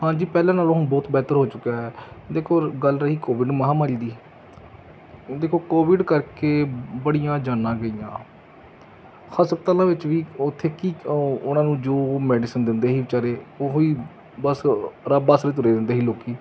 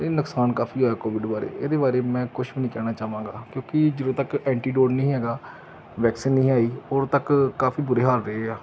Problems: background sounds at intervals